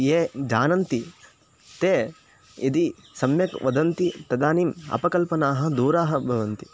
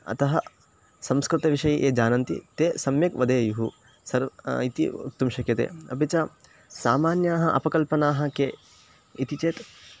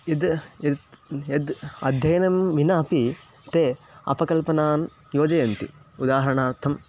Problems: constant background noise